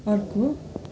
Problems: none marked